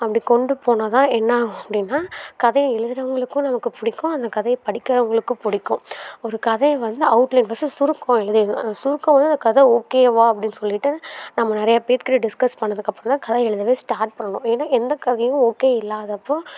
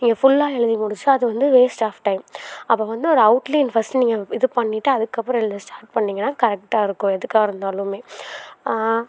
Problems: none marked